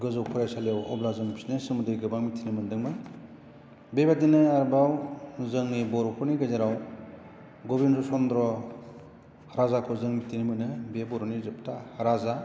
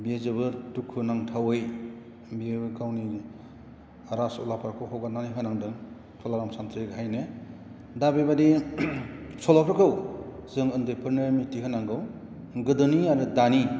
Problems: none marked